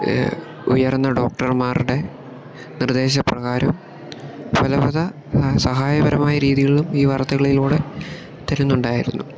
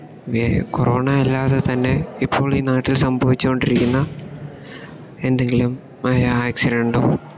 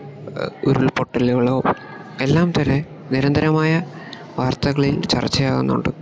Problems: background sounds at intervals